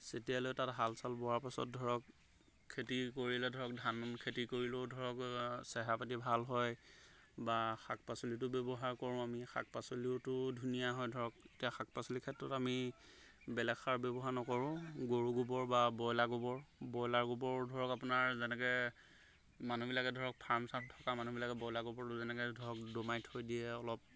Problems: background sounds at intervals